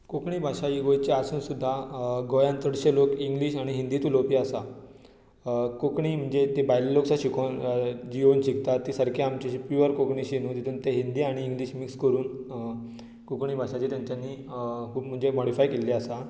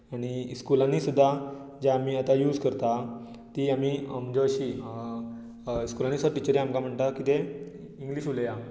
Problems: constant background noise